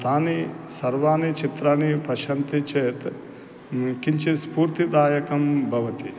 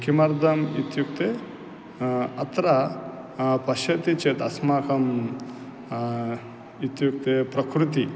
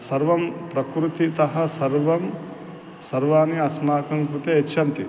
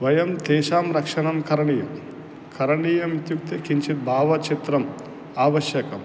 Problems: constant background noise